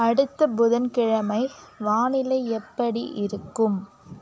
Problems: constant background noise